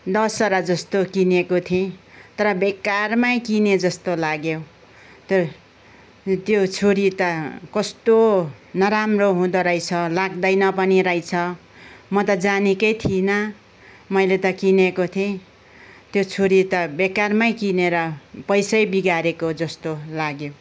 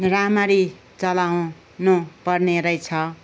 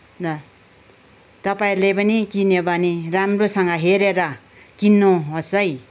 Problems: background conversations at intervals